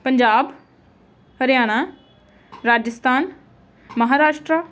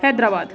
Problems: constant background noise, background conversations at intervals